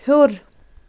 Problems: none marked